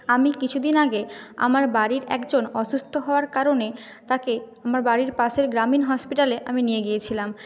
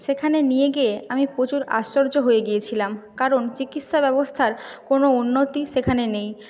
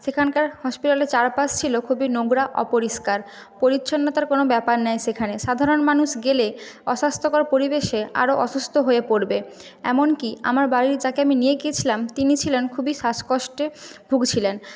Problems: none marked